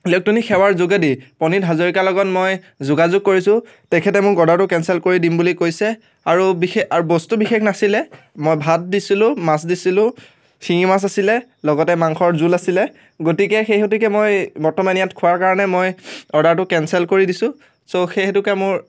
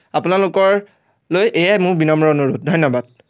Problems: constant background noise